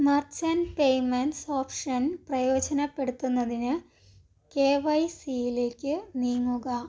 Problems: none marked